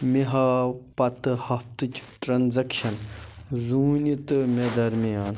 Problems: constant background noise